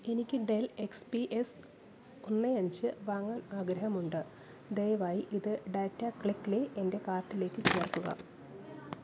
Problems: background sounds at intervals, low volume